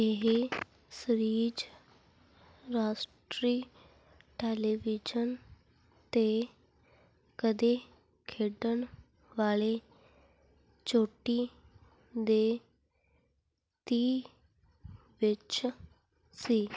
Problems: none marked